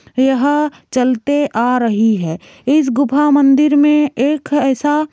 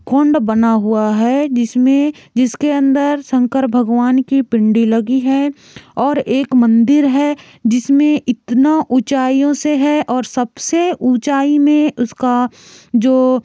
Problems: constant background noise